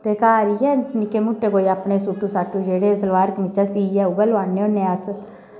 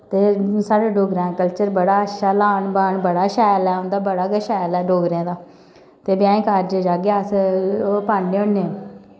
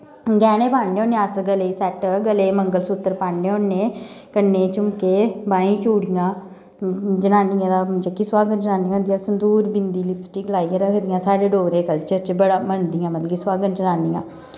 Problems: background sounds at intervals